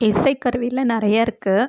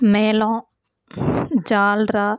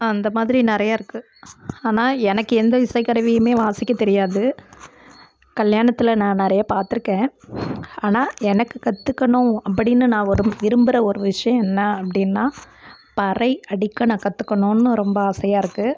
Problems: constant background noise